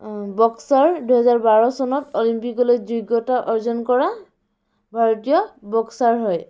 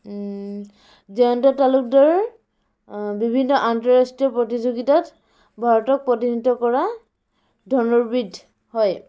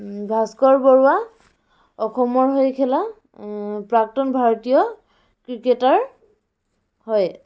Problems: background sounds at intervals, background conversations at intervals